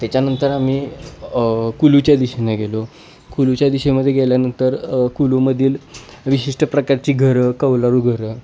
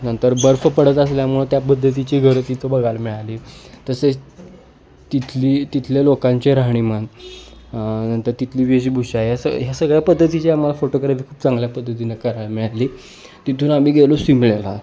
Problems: none marked